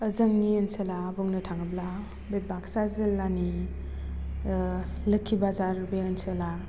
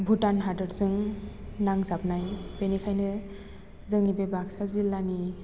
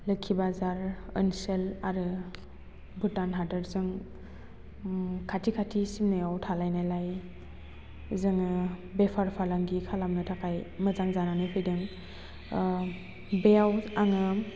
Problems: constant background noise